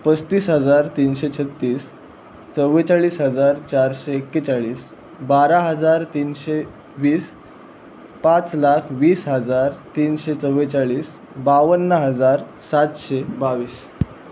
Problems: constant background noise